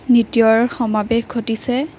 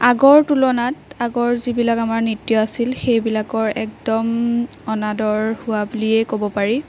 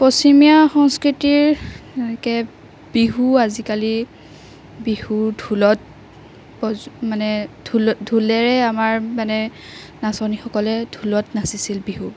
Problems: background sounds at intervals